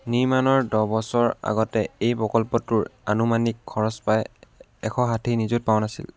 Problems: none marked